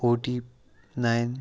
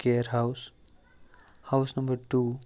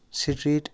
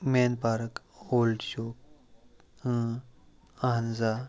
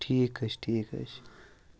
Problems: constant background noise